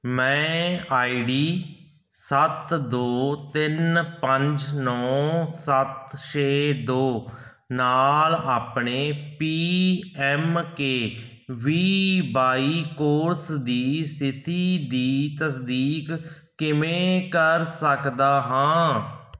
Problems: background sounds at intervals